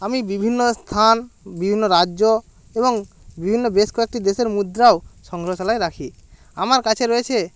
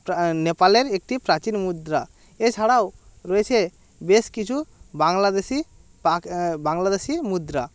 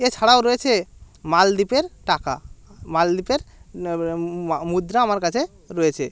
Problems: none marked